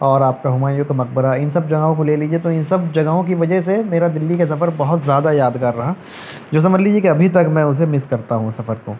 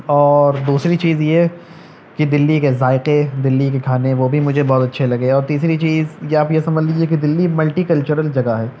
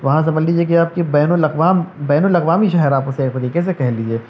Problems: background sounds at intervals